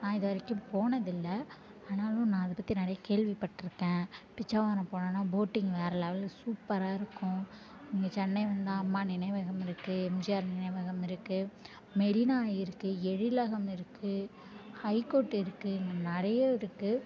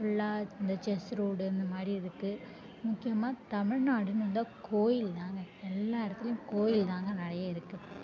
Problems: constant background noise, background conversations at intervals